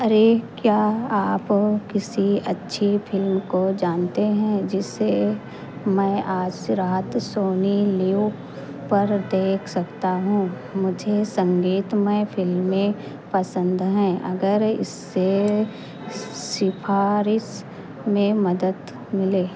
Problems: none marked